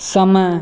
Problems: background sounds at intervals